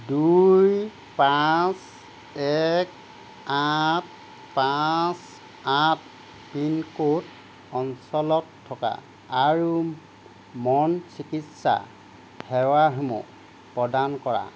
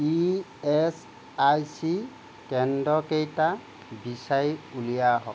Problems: constant background noise